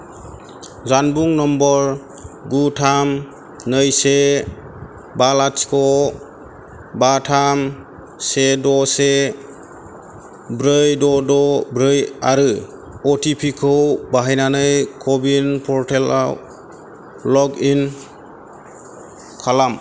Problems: none marked